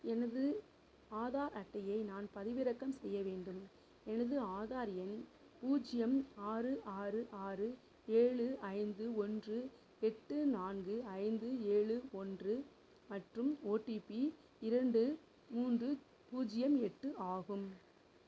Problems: low volume